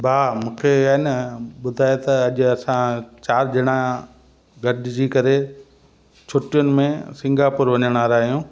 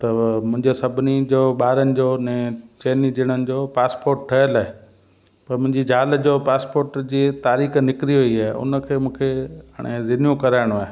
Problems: constant background noise, echo